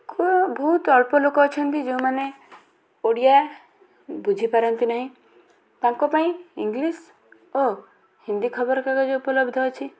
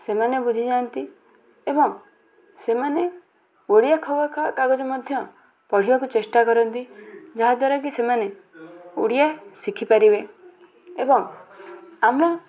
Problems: constant background noise, continuous background conversations